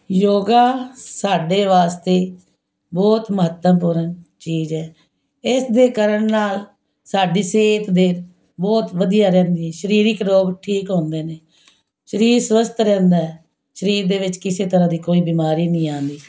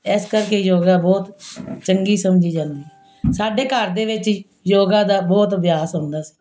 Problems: background sounds at intervals